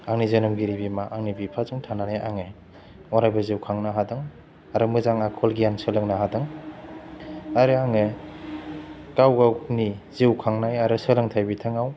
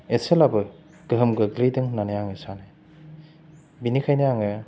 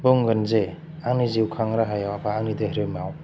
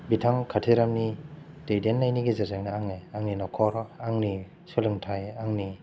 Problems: low volume